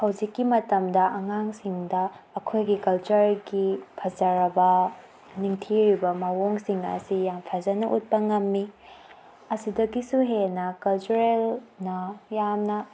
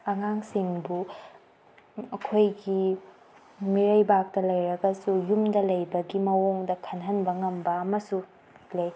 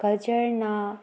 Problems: background sounds at intervals